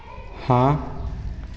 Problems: none marked